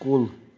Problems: background sounds at intervals